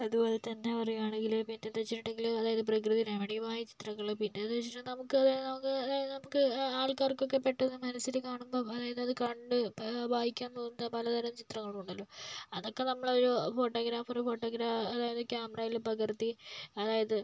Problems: low volume